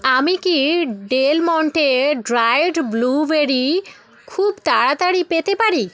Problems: continuous background conversations